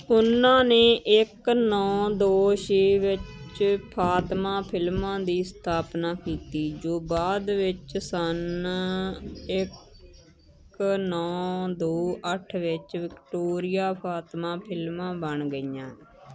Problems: constant background noise